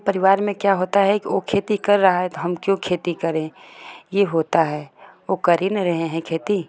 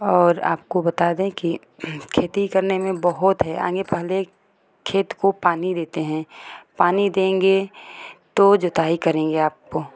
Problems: constant background noise